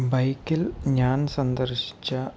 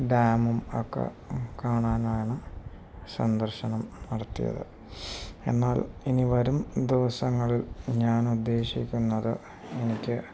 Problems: none marked